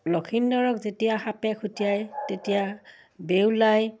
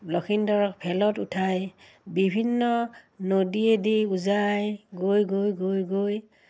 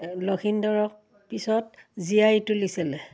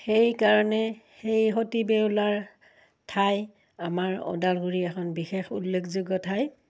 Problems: none marked